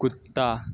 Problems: constant background noise